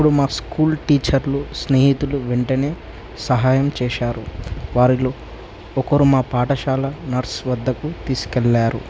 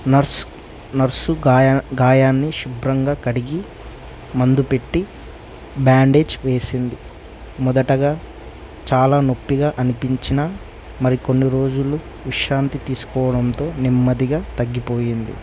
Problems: constant background noise, low volume